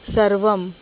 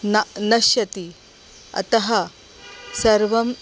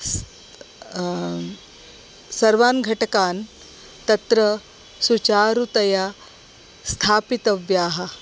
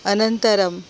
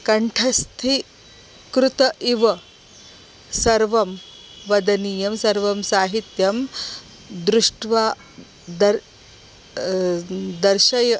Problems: constant background noise